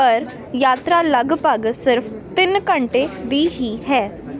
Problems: none marked